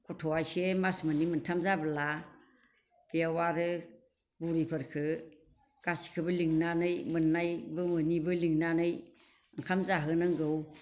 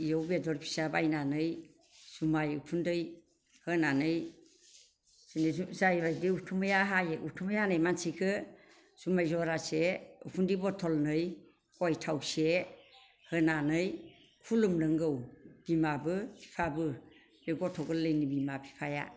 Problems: constant background noise